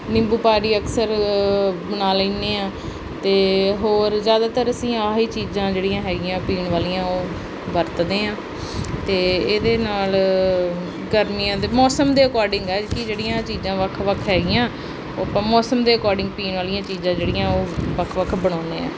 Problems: constant background noise